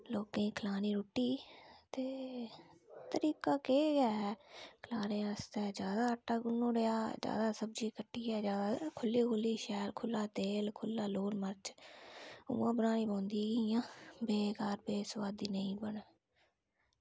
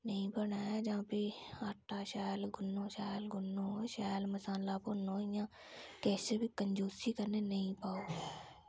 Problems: low volume